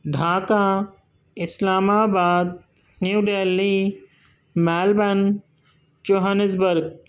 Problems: constant background noise